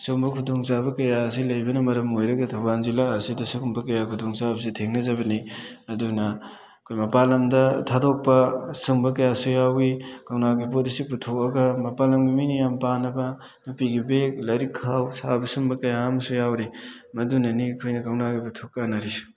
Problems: background sounds at intervals